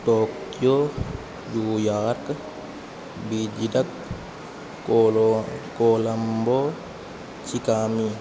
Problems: constant background noise